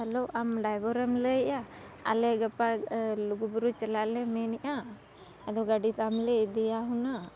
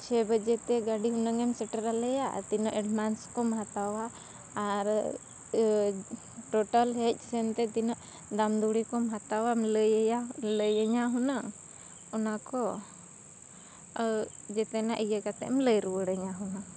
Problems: none marked